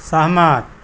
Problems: constant background noise